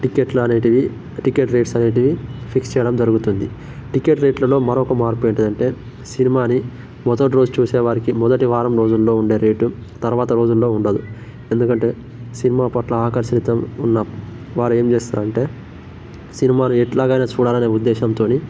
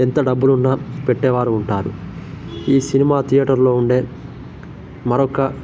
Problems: constant background noise